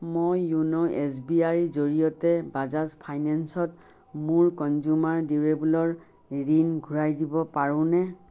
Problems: constant background noise